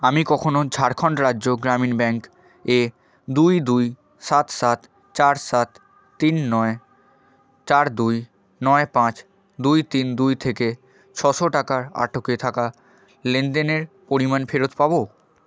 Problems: background conversations at intervals